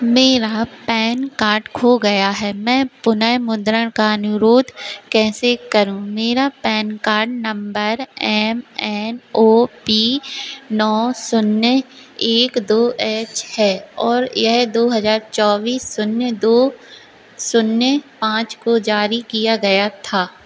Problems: constant background noise